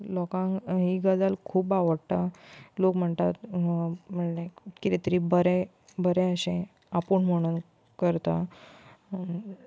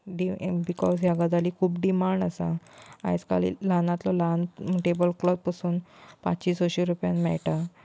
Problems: constant background noise, background conversations at intervals